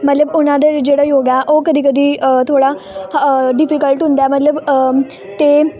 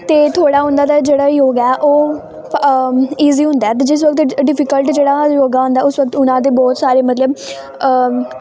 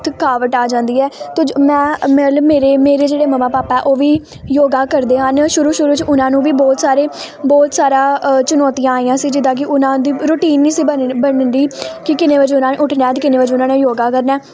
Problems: none marked